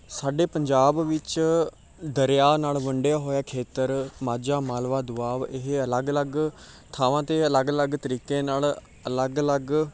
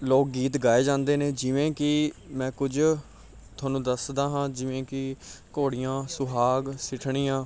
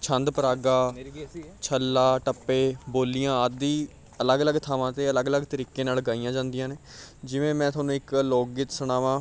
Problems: background sounds at intervals